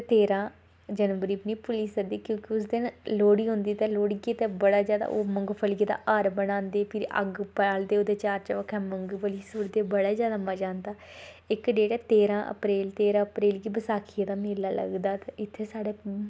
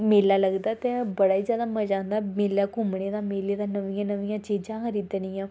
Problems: constant background noise